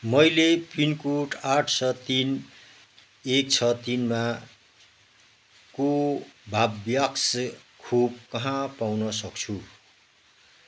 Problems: background sounds at intervals